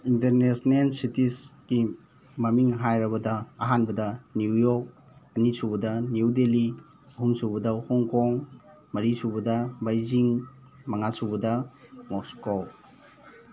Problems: constant background noise